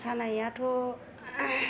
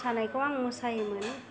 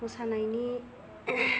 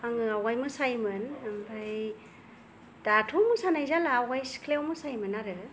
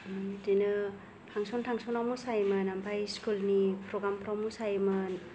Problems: none marked